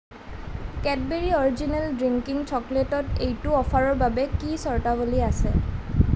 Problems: none marked